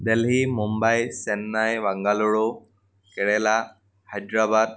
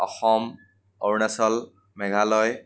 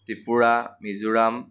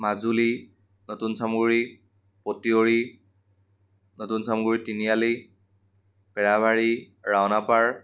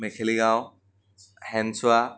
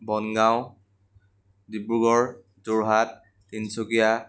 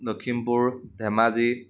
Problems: none marked